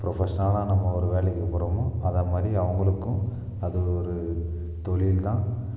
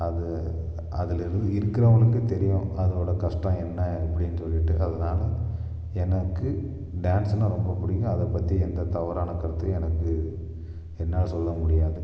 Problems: echo